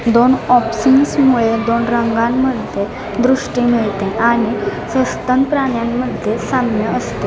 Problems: none marked